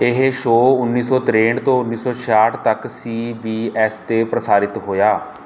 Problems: none marked